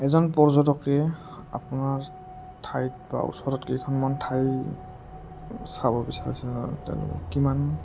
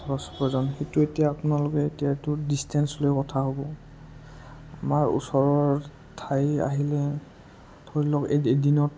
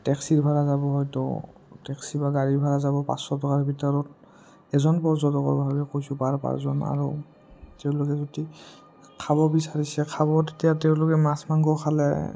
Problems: low volume